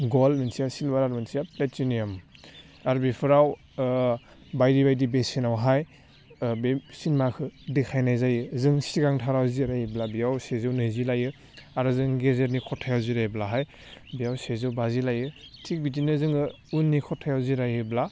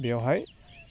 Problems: low volume